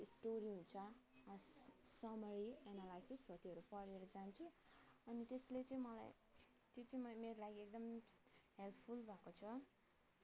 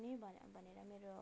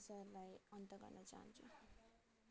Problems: background sounds at intervals, low volume